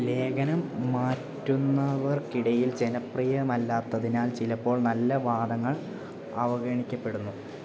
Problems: low volume